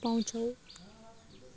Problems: background sounds at intervals